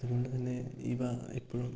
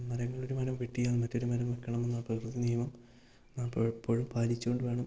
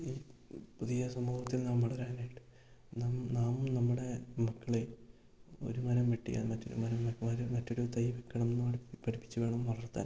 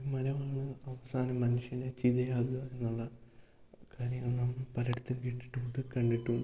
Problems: low volume